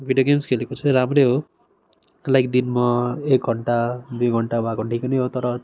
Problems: constant background noise